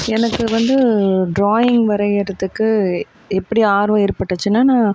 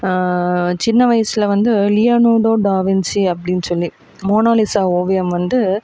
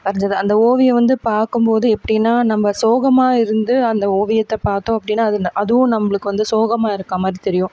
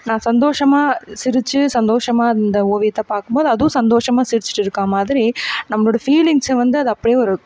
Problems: background sounds at intervals